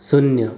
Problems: none marked